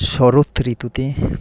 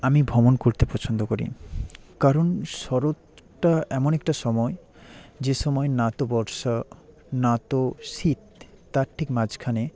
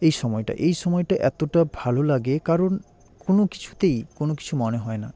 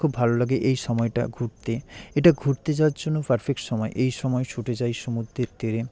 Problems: constant background noise